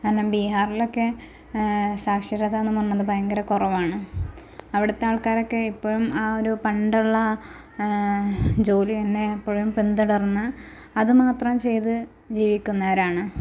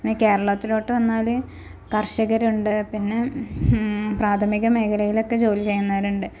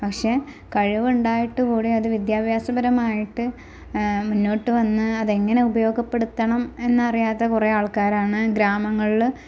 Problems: constant background noise